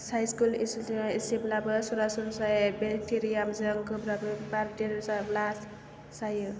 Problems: low volume